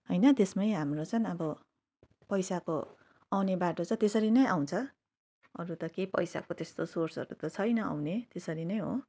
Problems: none marked